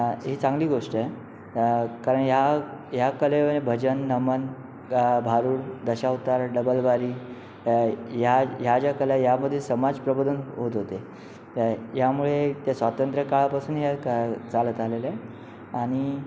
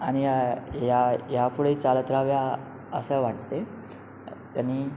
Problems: constant background noise